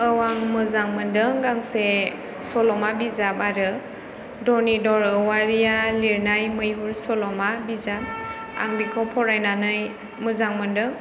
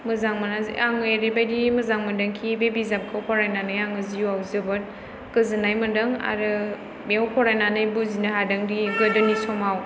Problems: background sounds at intervals